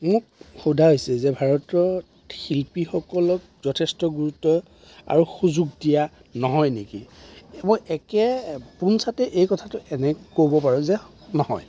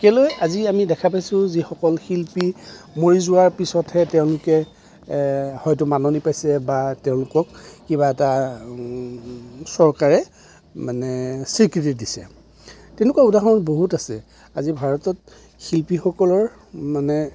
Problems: none marked